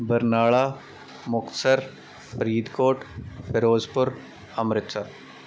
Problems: constant background noise